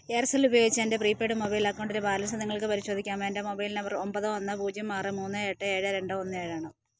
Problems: none marked